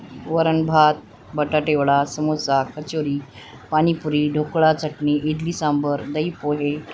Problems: none marked